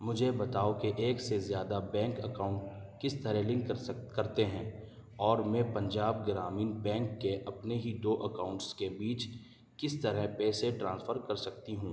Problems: none marked